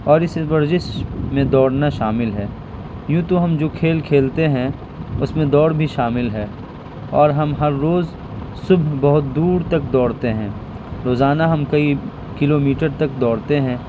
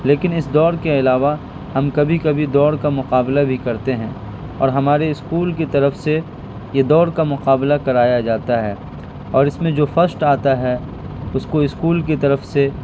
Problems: constant background noise